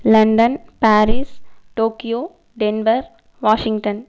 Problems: none marked